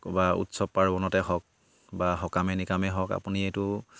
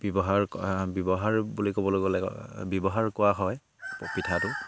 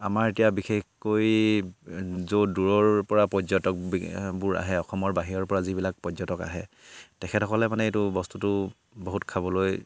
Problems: background sounds at intervals